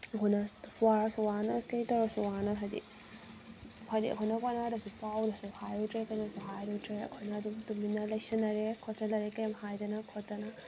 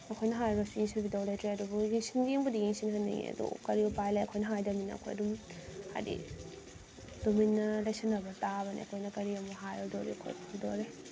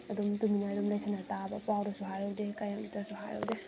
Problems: background conversations at intervals